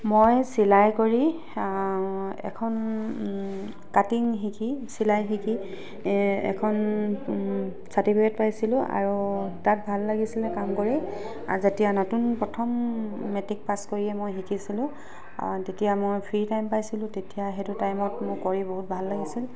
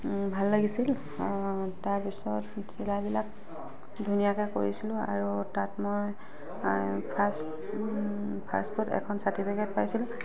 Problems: constant background noise